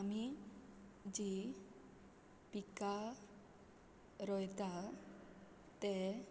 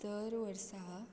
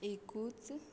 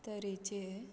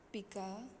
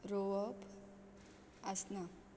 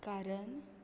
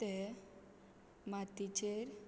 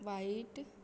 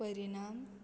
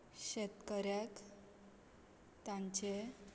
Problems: constant background noise